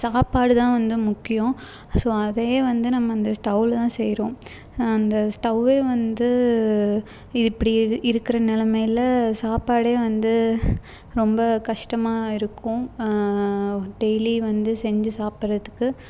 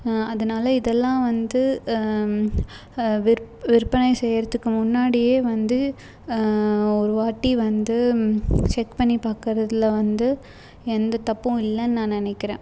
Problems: background sounds at intervals